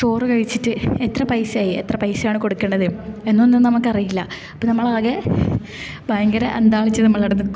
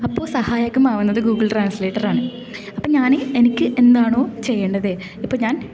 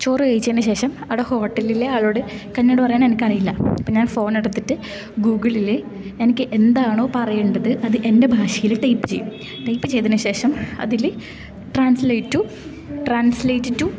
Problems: none marked